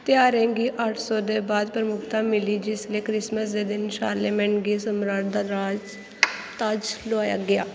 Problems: constant background noise